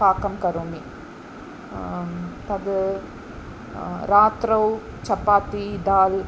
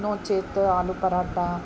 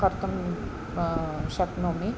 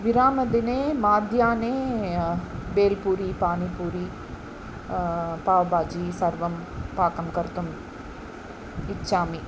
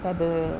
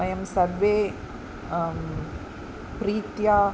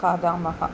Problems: none marked